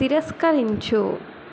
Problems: constant background noise